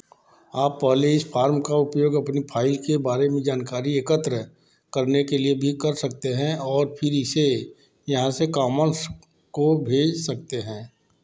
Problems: constant background noise, background conversations at intervals